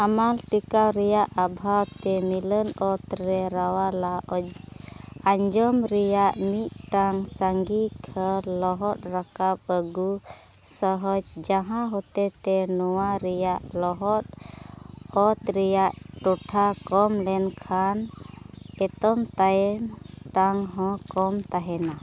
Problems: constant background noise